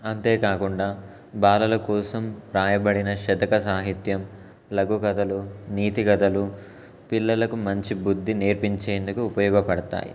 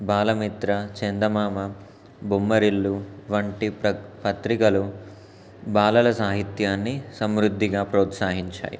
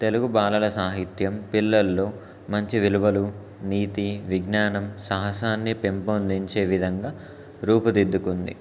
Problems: constant background noise